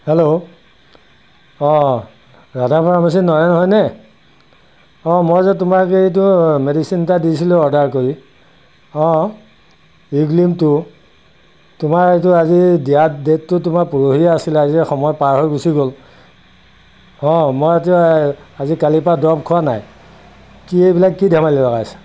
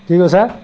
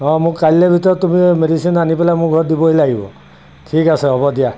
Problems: constant background noise